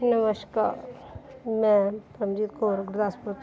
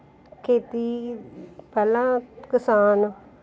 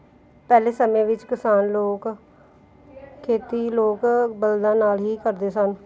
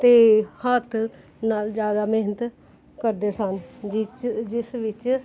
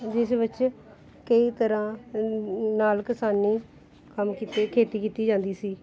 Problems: background sounds at intervals, background conversations at intervals